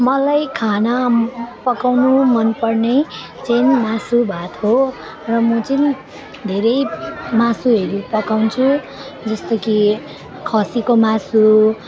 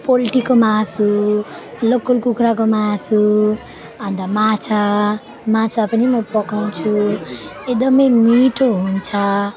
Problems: constant background noise, continuous background conversations